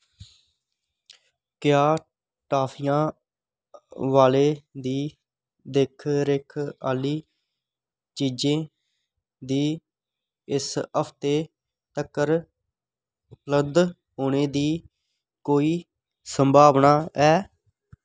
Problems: none marked